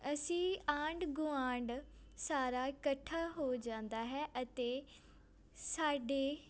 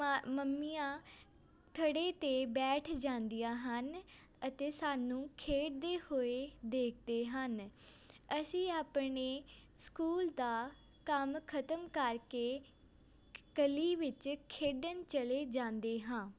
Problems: constant background noise